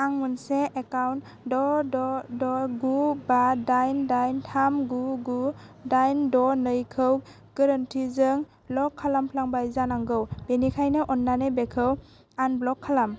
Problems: constant background noise